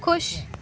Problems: background sounds at intervals